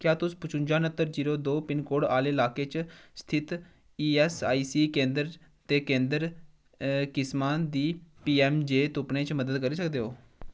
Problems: none marked